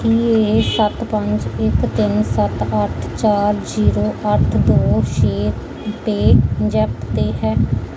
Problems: background sounds at intervals